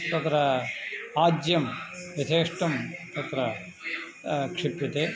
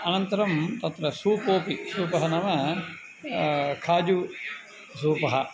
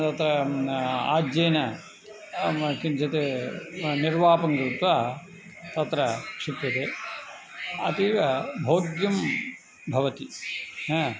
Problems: constant background noise, background conversations at intervals